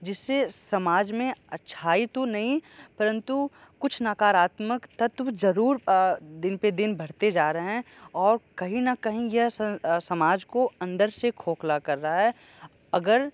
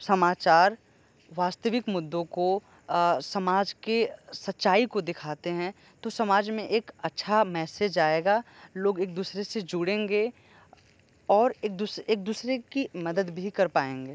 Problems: none marked